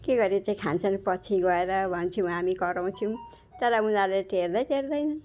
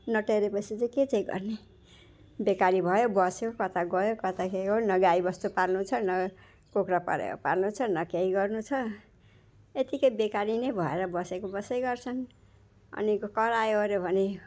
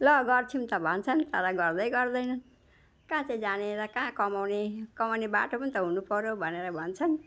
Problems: background sounds at intervals